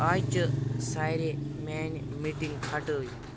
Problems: constant background noise